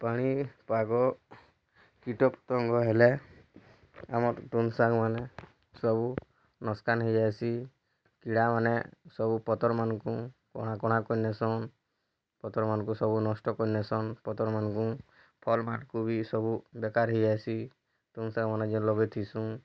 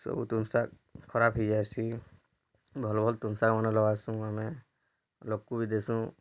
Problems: low volume